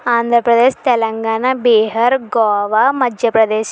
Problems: none marked